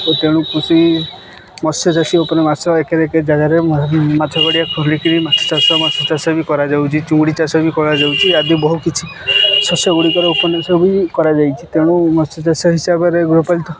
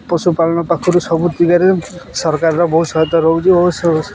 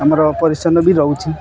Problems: constant background noise, continuous background conversations